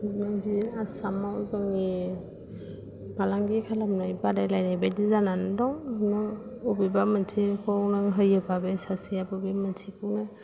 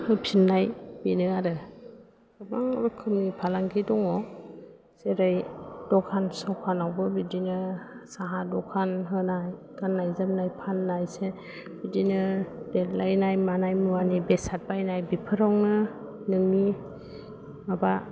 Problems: low volume